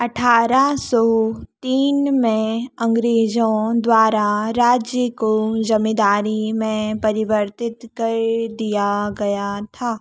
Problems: background sounds at intervals